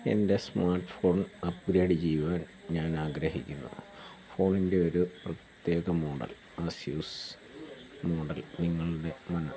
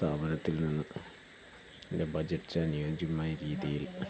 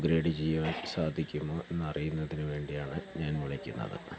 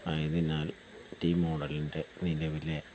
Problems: low volume